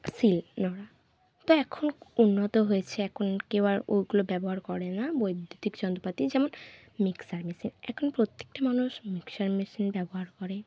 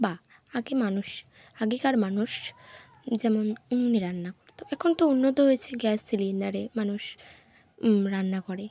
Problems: constant background noise